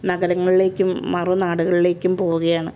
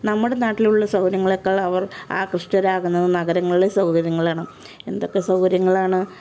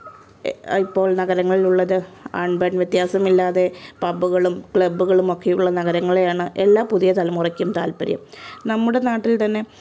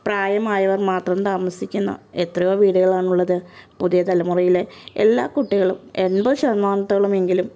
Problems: background sounds at intervals